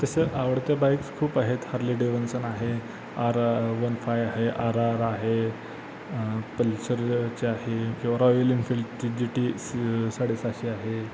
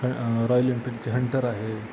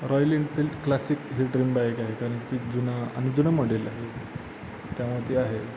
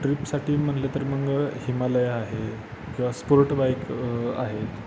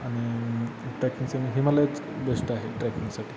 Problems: constant background noise, continuous background conversations